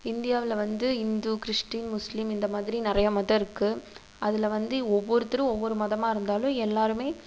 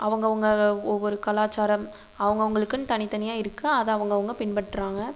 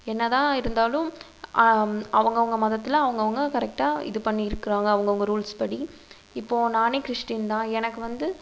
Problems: constant background noise